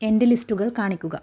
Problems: low volume